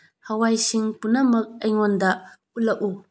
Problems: low volume